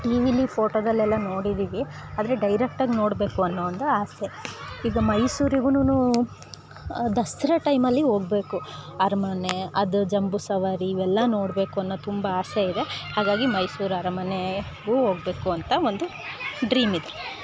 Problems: background sounds at intervals